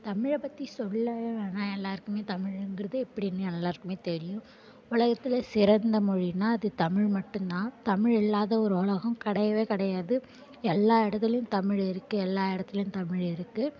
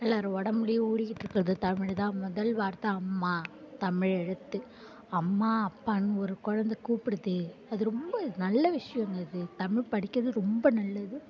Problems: constant background noise